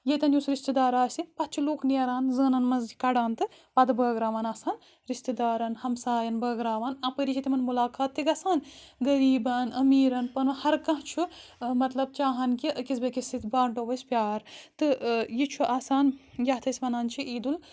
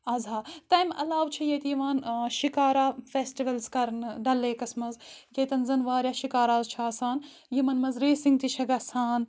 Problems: background sounds at intervals